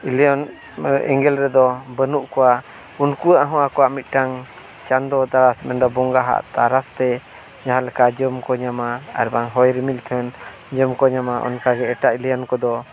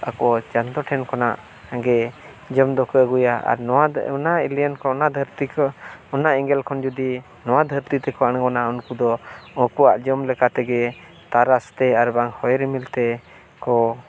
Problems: constant background noise